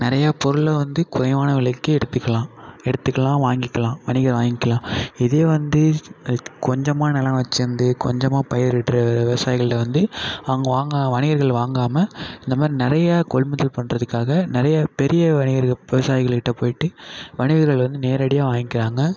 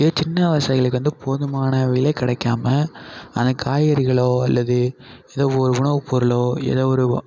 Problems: none marked